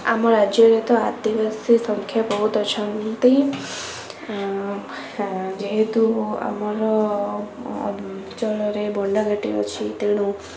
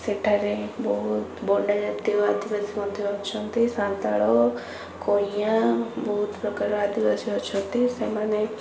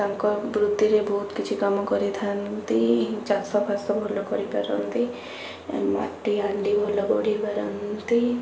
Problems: constant background noise